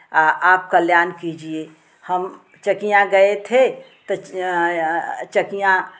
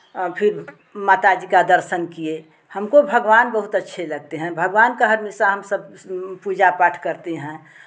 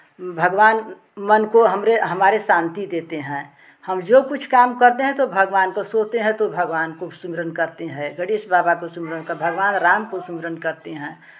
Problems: none marked